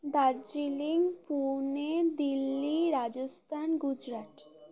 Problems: continuous background conversations